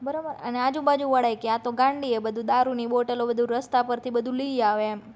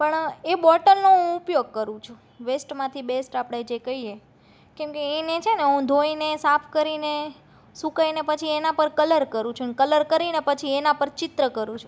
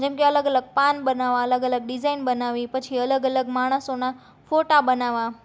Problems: none marked